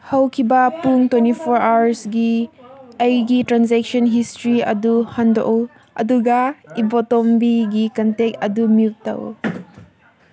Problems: background conversations at intervals